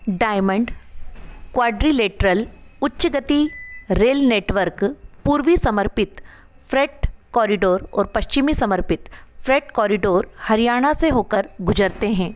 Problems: constant background noise